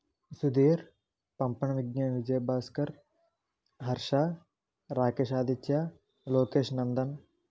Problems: low volume